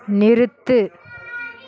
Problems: continuous background conversations